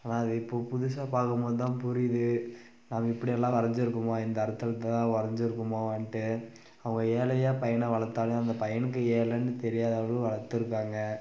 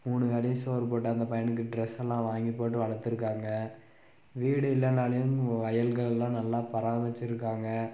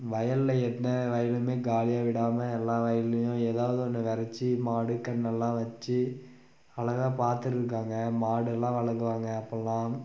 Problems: constant background noise